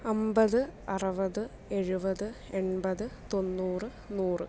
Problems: low volume